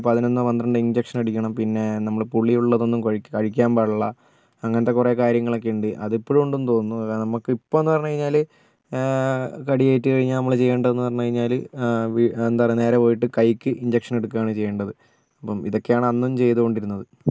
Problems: none marked